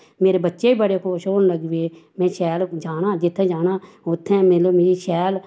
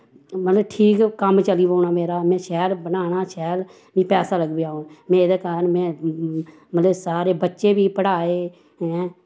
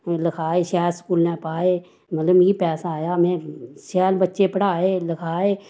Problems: background sounds at intervals